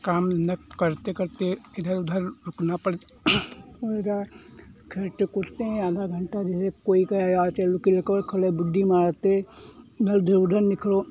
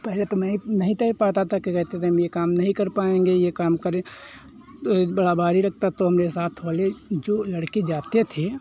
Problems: constant background noise